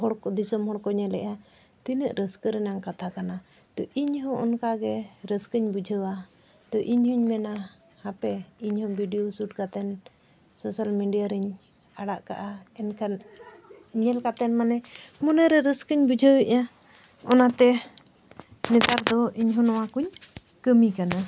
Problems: none marked